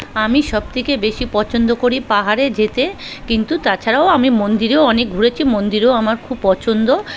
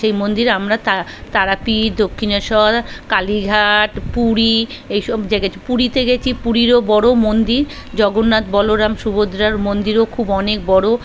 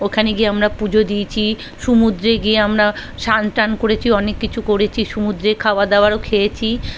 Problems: constant background noise, background conversations at intervals